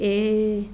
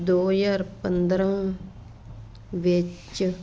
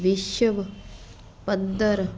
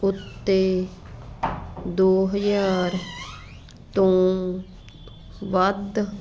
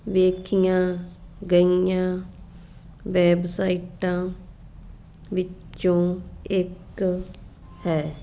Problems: background sounds at intervals